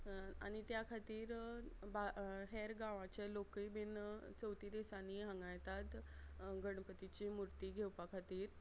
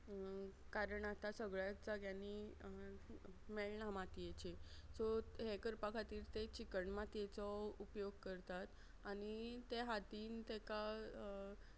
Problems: none marked